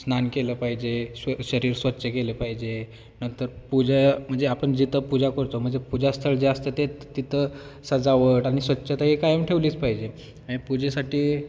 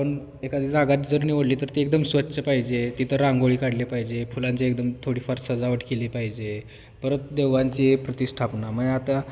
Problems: none marked